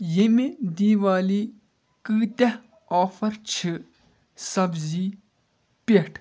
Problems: background sounds at intervals